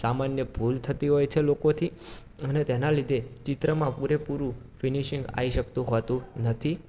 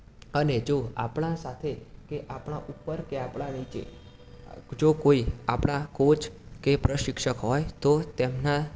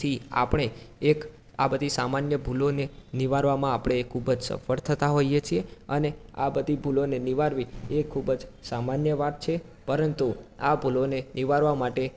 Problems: background sounds at intervals, background conversations at intervals